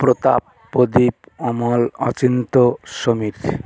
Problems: continuous background conversations